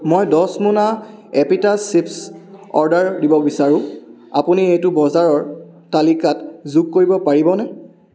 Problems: background sounds at intervals